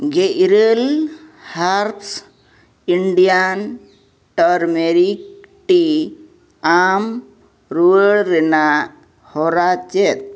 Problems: none marked